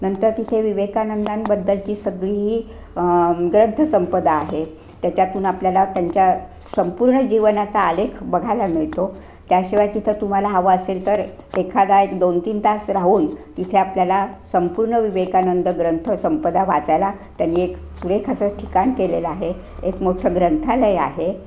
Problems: none marked